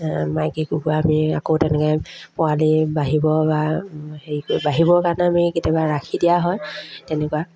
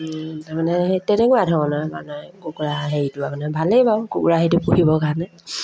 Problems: constant background noise, background conversations at intervals